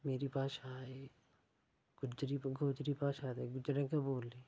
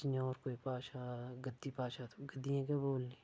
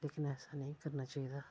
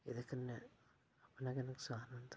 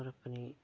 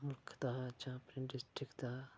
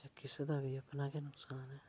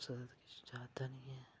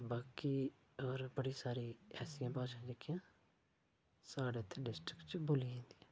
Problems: low volume